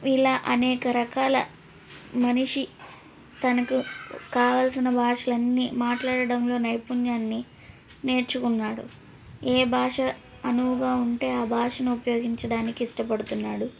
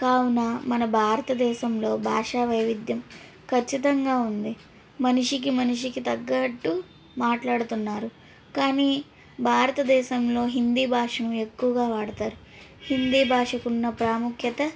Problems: background sounds at intervals, background conversations at intervals